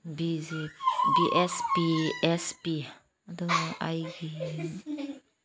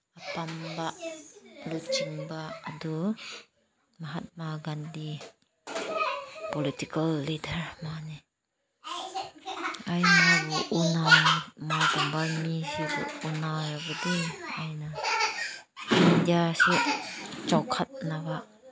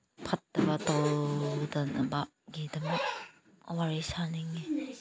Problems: background conversations at intervals, low volume